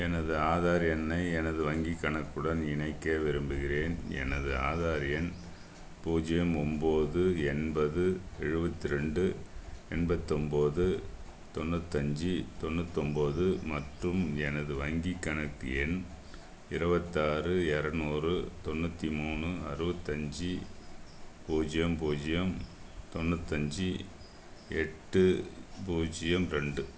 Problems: none marked